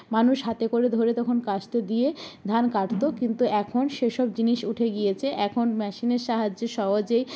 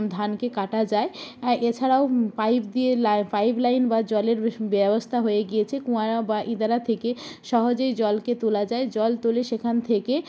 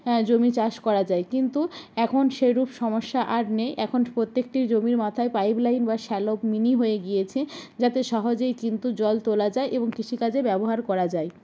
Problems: none marked